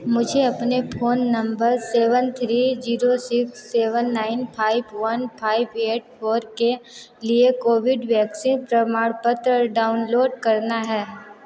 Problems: constant background noise, background conversations at intervals